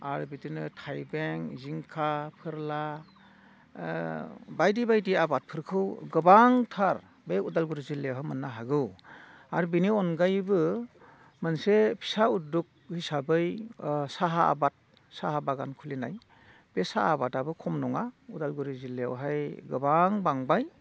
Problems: none marked